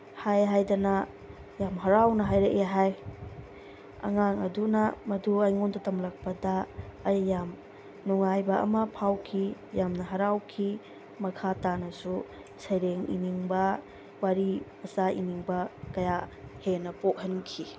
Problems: constant background noise